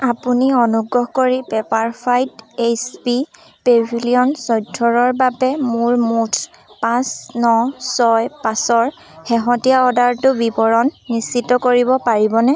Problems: none marked